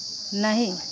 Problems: constant background noise